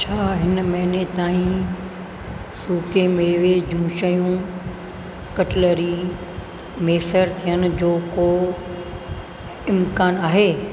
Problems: constant background noise, echo